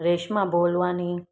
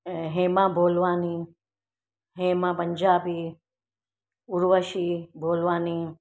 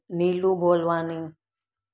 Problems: none marked